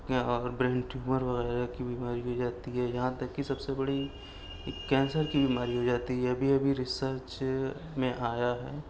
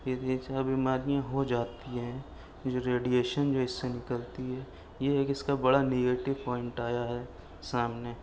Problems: background sounds at intervals, low volume